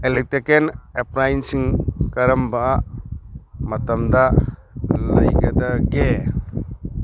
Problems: background sounds at intervals